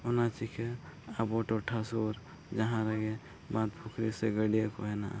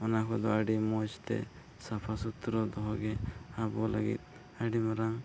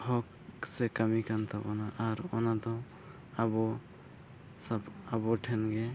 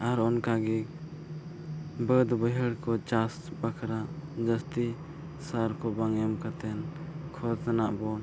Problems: low volume